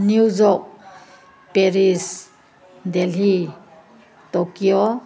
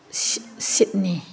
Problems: constant background noise